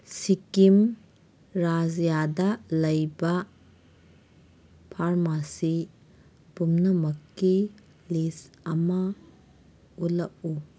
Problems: background sounds at intervals